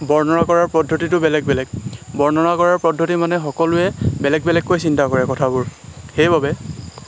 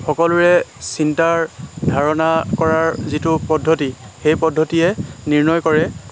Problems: constant background noise